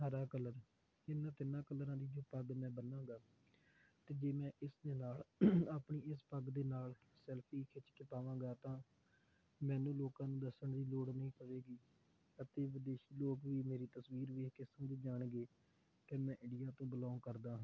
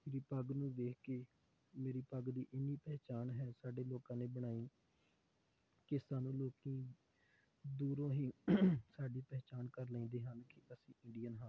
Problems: none marked